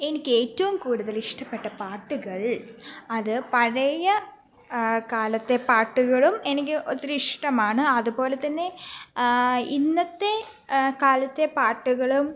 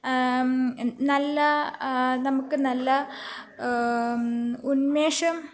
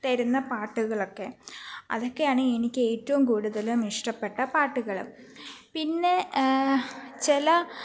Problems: background sounds at intervals